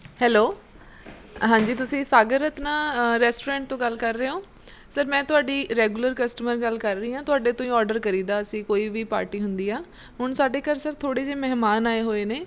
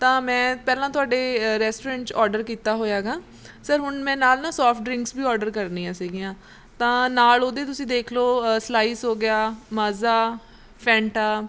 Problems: background sounds at intervals